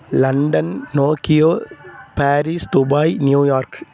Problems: constant background noise